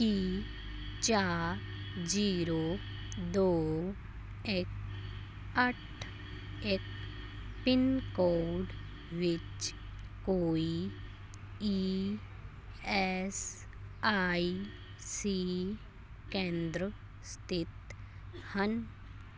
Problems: background sounds at intervals